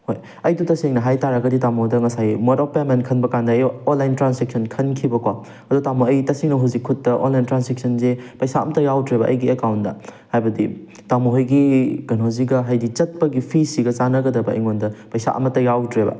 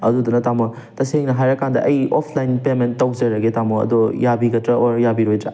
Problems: none marked